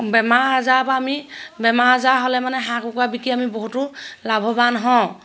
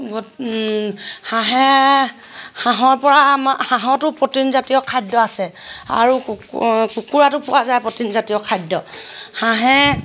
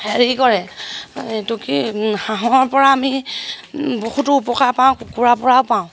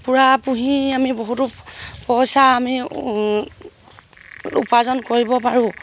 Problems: none marked